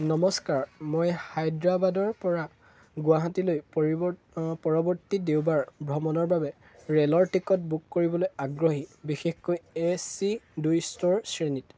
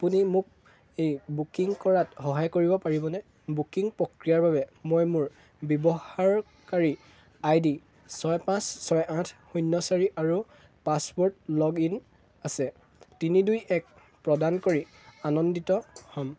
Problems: constant background noise, background conversations at intervals